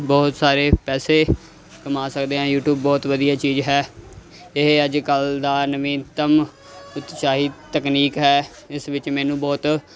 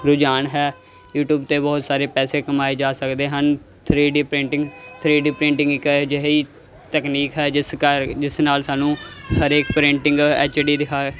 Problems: constant background noise